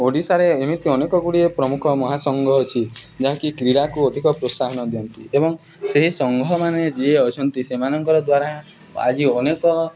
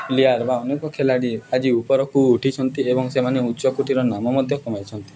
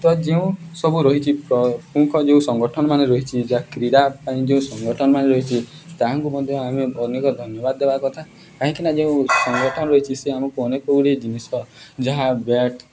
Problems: background sounds at intervals